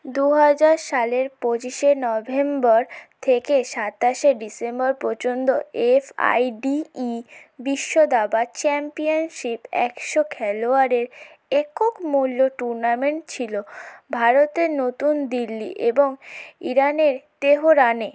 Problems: constant background noise